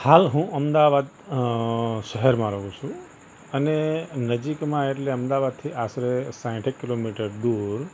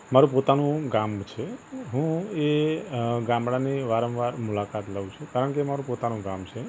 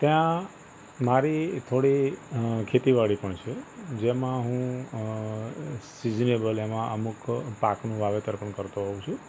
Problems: constant background noise